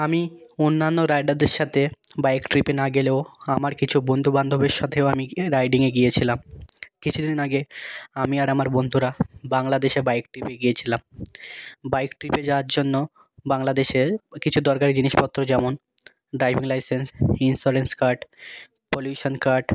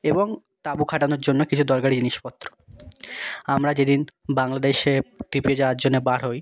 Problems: none marked